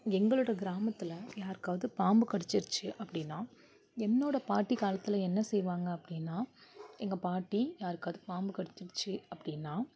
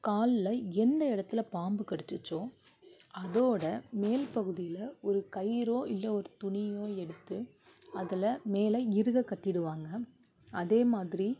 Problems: none marked